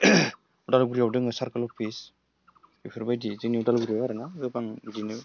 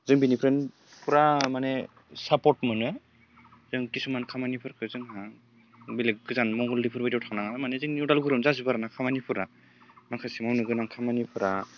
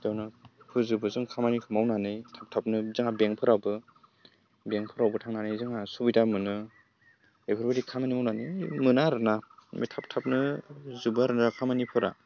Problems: low volume